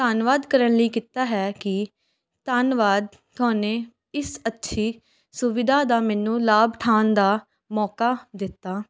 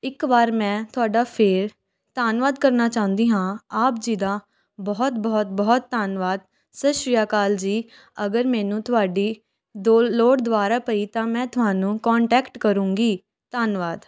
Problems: background sounds at intervals